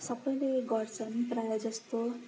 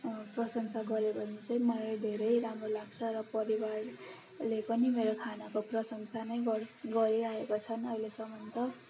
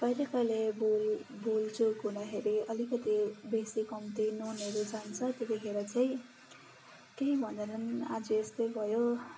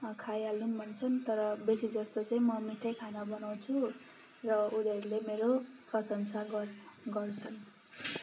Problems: constant background noise